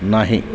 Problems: constant background noise, continuous background conversations